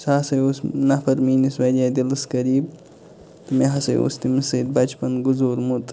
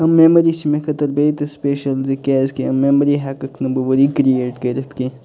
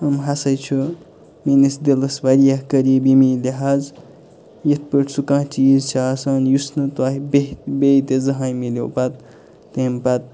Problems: constant background noise, background conversations at intervals